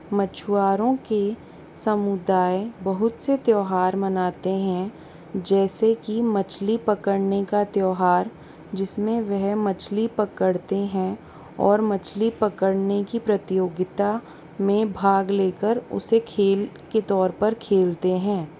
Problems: constant background noise